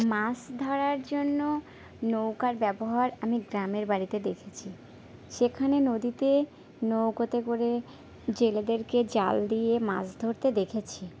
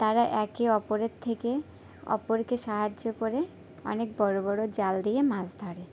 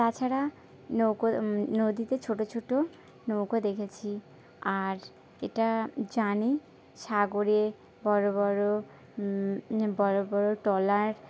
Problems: background sounds at intervals